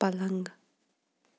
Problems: background sounds at intervals